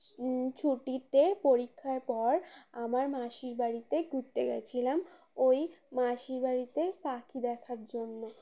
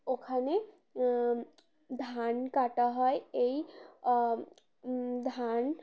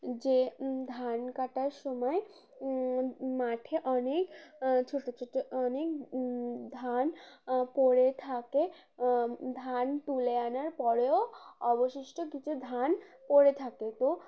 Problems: constant background noise, continuous background conversations